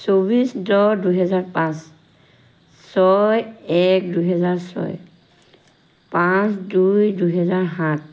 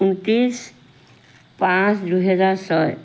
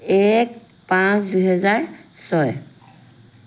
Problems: background sounds at intervals